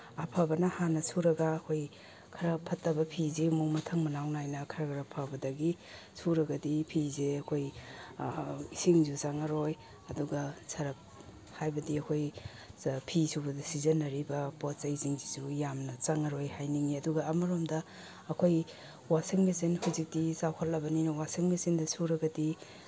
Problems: none marked